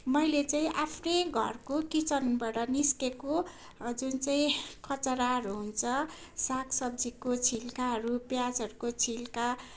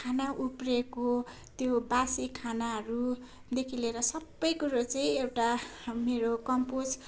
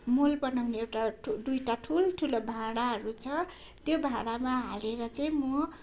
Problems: none marked